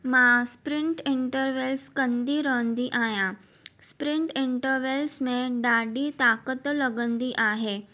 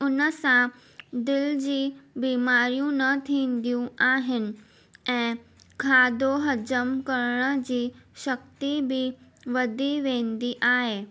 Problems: none marked